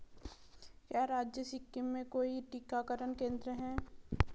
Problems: background sounds at intervals